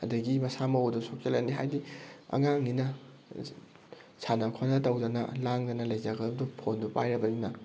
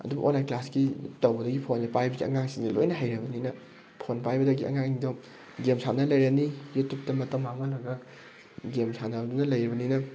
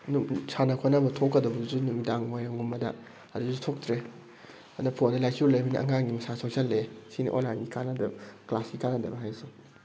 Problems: background sounds at intervals